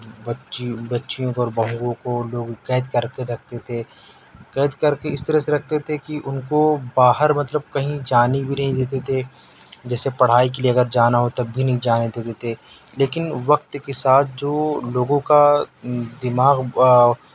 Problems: constant background noise